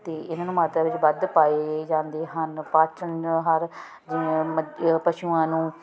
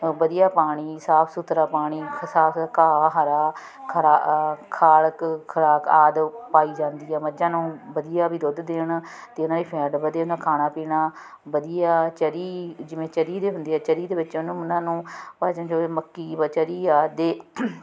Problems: continuous background conversations